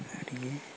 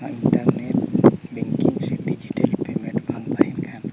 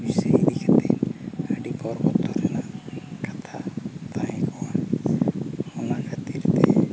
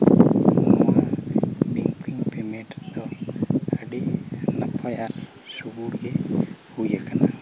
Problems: constant background noise